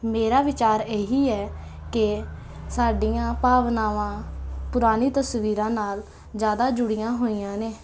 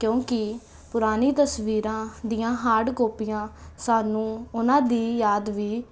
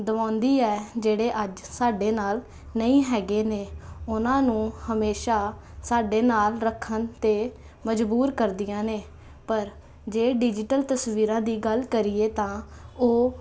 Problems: constant background noise